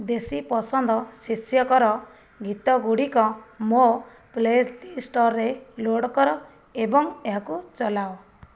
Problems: none marked